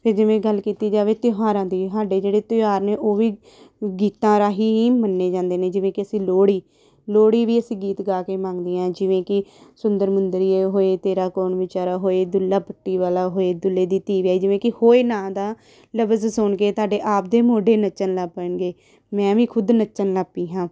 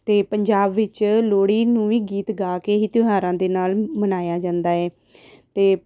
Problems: background sounds at intervals